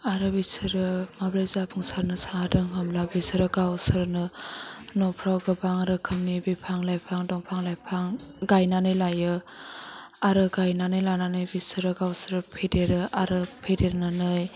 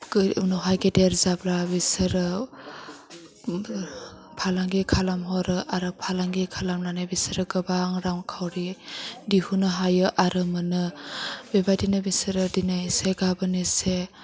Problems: background sounds at intervals